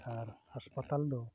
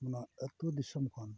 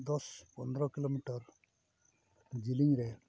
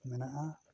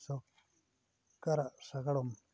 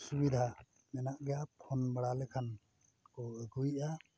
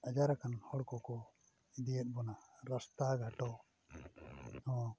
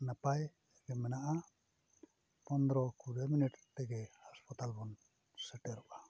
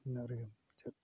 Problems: background sounds at intervals